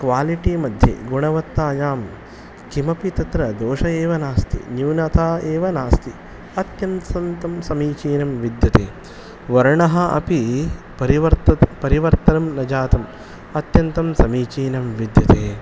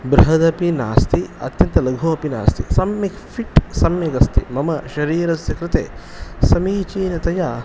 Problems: none marked